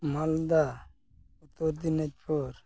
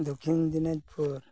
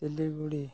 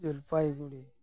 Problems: background sounds at intervals